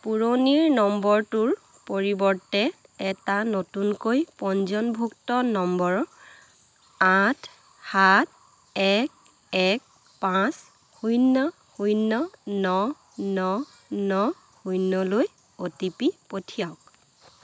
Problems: constant background noise